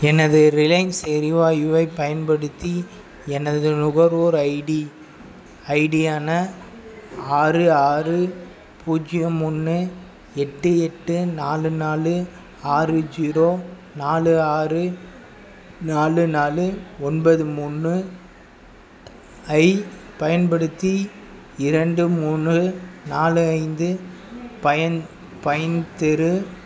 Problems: background sounds at intervals